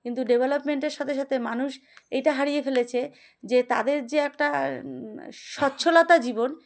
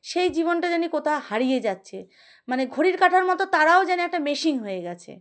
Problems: none marked